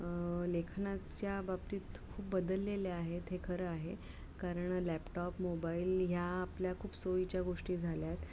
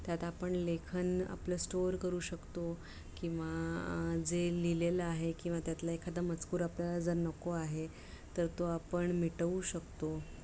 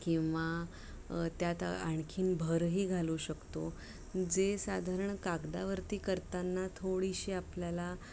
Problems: low volume